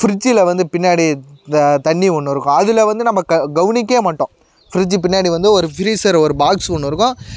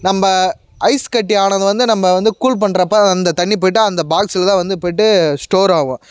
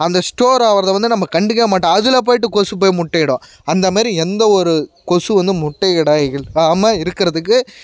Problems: none marked